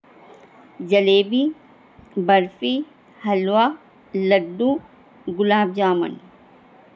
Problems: constant background noise